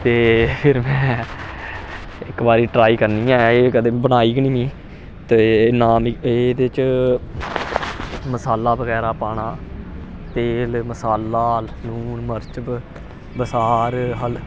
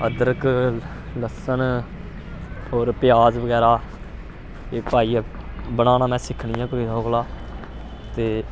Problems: constant background noise